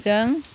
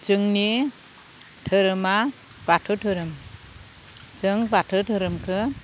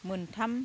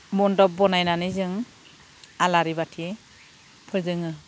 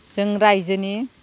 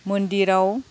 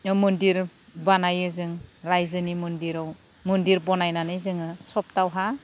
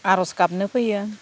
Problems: low volume